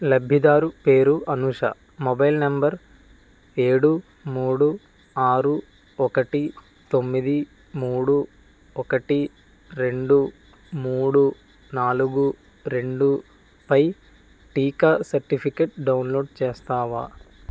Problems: none marked